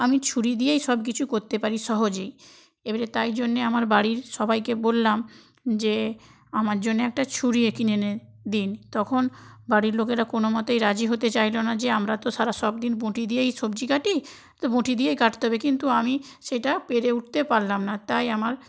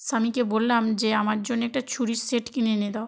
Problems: none marked